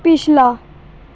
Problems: none marked